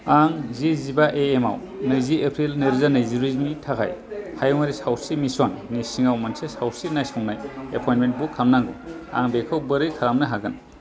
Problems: constant background noise